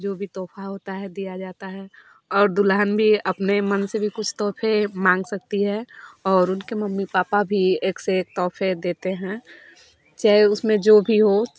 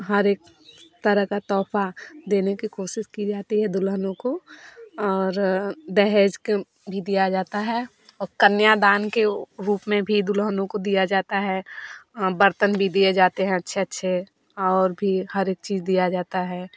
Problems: none marked